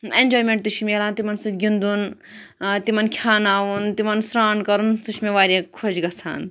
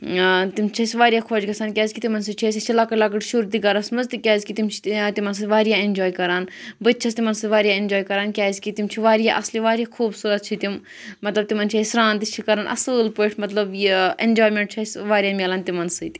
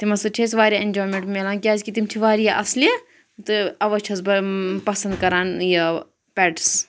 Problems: none marked